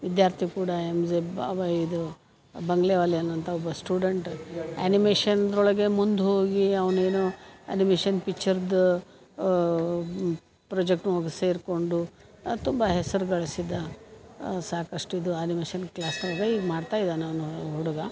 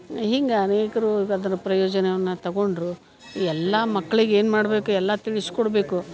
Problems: none marked